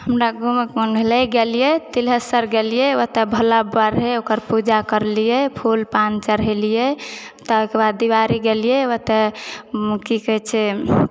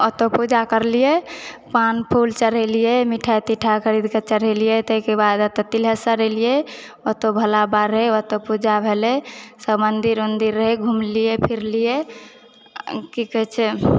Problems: background sounds at intervals